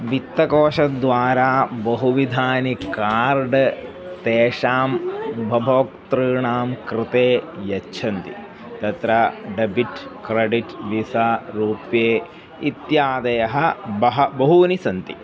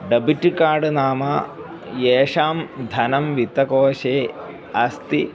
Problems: background sounds at intervals